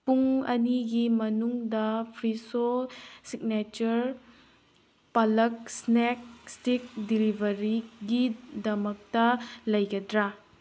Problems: background sounds at intervals